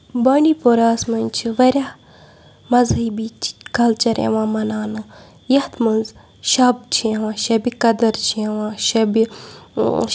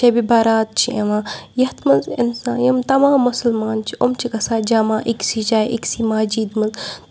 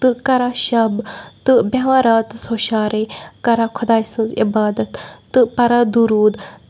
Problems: background sounds at intervals, background conversations at intervals